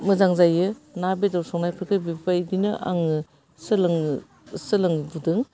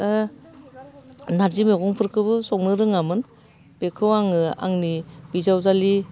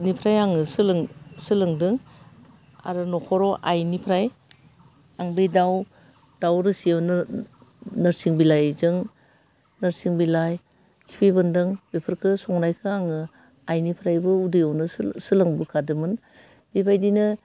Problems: none marked